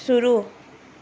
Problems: none marked